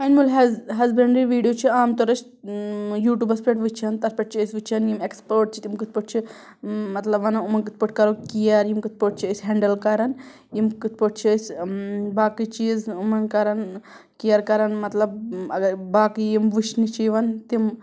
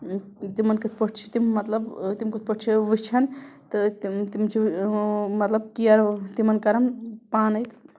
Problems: background sounds at intervals